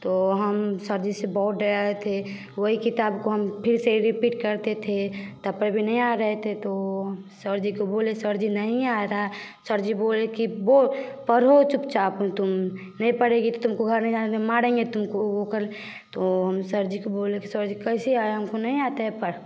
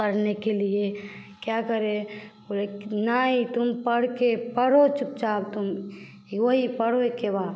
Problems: none marked